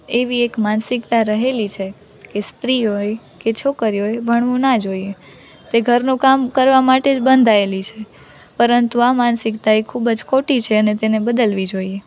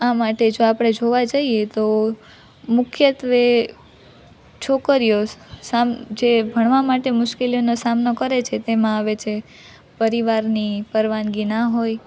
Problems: none marked